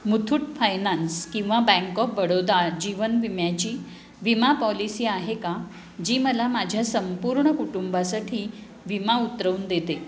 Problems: constant background noise, background conversations at intervals